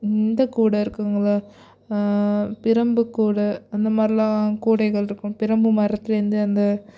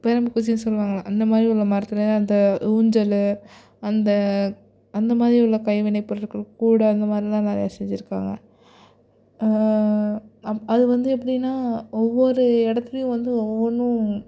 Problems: none marked